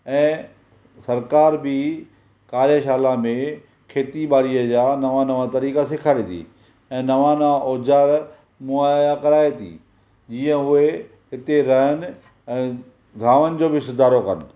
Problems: none marked